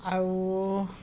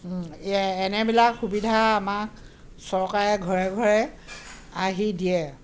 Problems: constant background noise